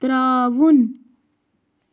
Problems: none marked